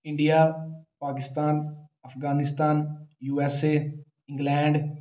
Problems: none marked